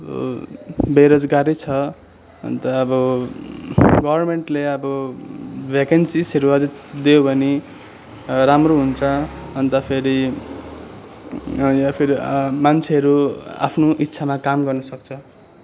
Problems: none marked